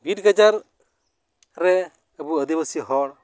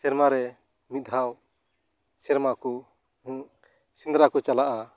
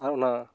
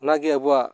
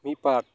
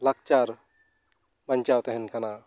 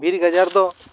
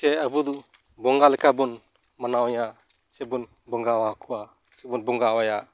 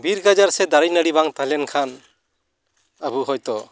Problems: none marked